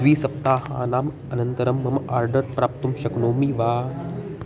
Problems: none marked